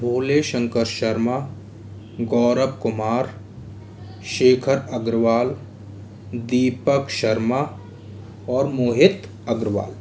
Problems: none marked